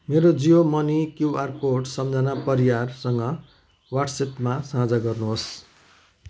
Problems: constant background noise, continuous background conversations